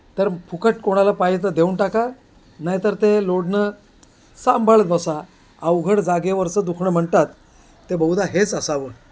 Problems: constant background noise, background conversations at intervals